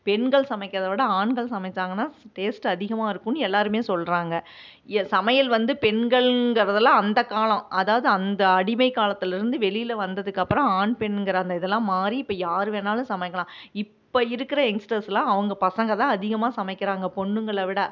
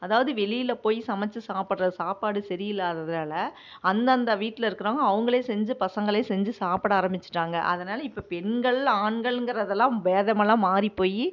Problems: none marked